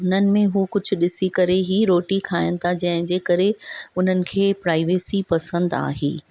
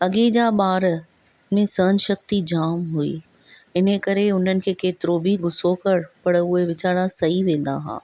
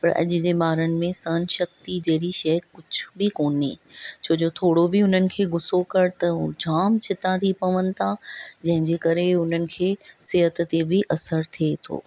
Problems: none marked